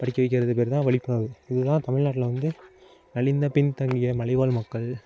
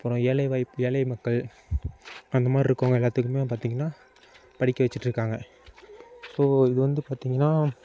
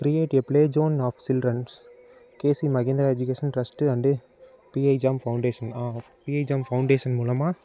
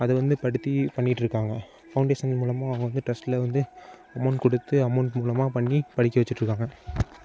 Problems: constant background noise